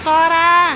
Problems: background sounds at intervals